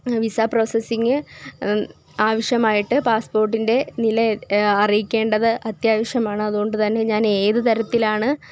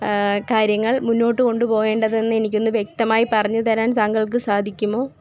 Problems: none marked